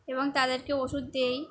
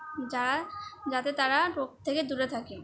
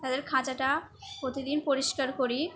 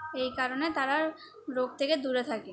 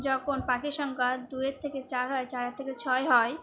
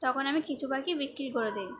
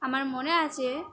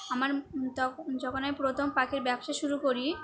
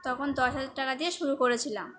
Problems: constant background noise, background conversations at intervals